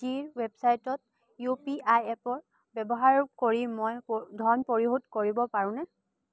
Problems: low volume